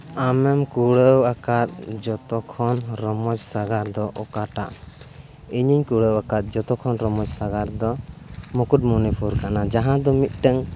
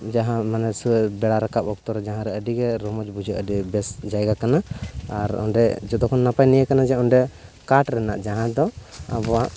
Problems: background sounds at intervals, continuous background conversations